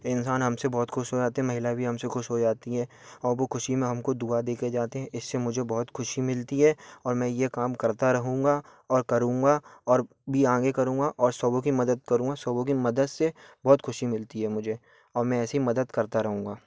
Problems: background sounds at intervals